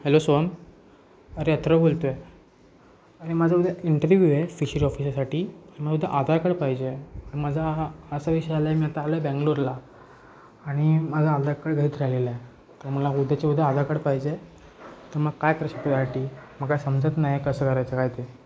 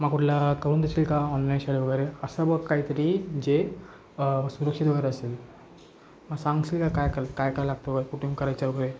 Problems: constant background noise, background conversations at intervals